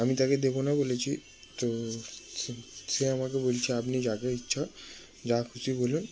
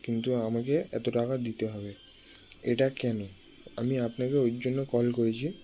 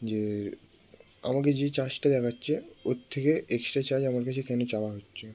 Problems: background sounds at intervals